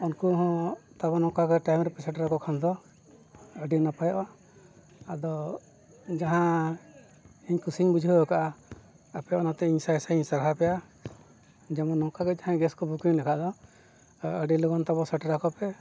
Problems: background sounds at intervals